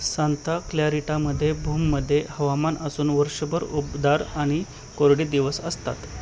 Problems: constant background noise